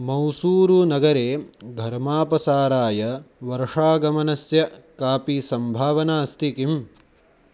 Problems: none marked